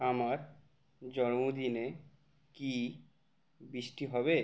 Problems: none marked